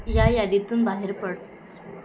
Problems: background sounds at intervals